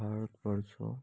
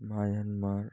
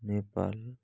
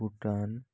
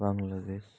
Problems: low volume